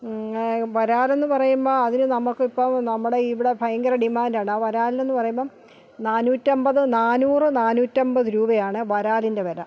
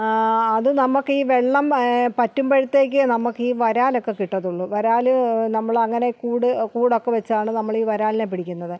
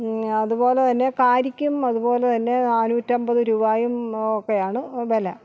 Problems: none marked